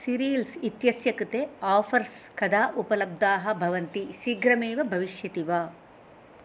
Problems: none marked